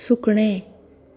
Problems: none marked